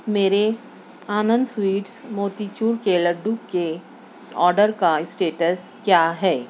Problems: constant background noise, low volume